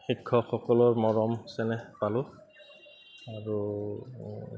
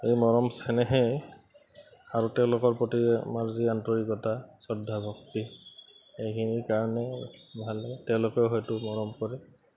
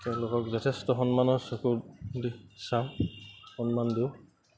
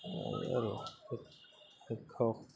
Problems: none marked